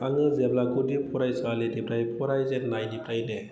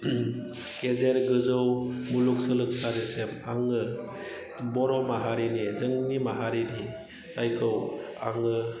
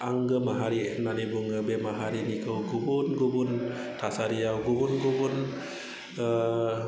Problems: background sounds at intervals, background conversations at intervals